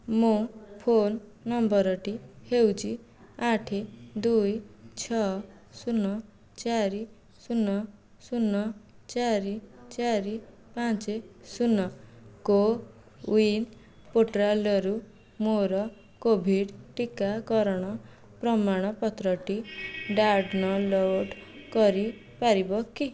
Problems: background sounds at intervals